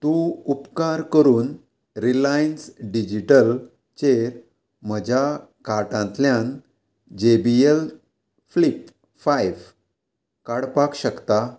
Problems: constant background noise